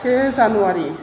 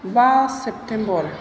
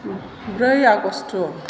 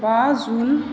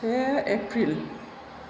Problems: constant background noise